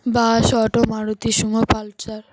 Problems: constant background noise